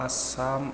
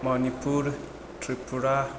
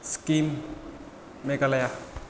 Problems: low volume